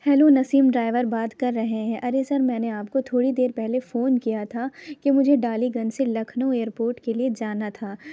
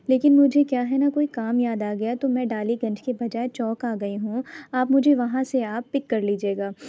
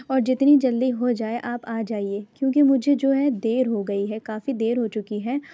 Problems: none marked